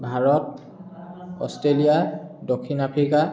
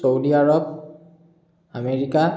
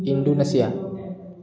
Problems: continuous background conversations